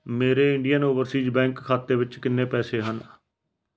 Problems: none marked